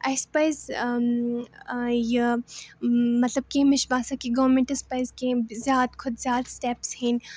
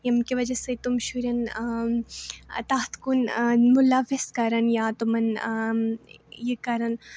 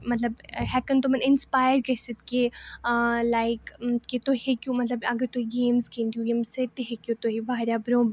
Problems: none marked